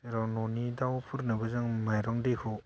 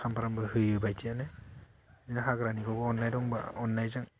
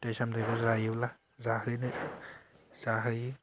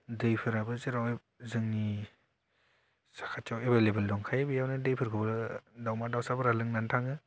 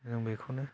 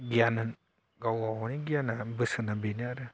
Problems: low volume